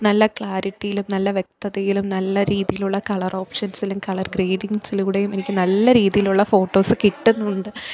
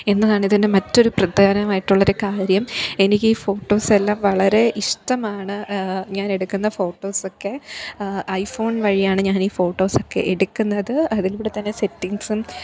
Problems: background conversations at intervals